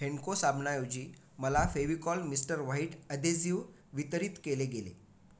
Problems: constant background noise